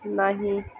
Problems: background sounds at intervals